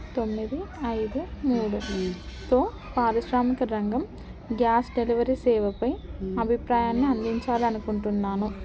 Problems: constant background noise